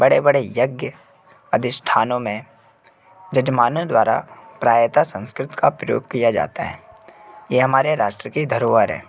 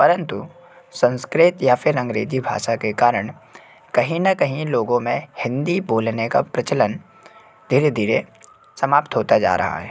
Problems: constant background noise